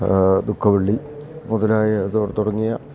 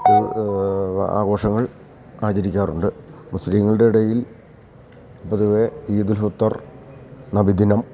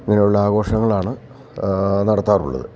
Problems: none marked